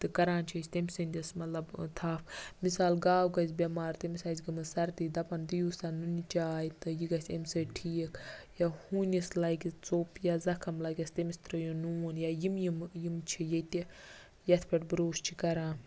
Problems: background conversations at intervals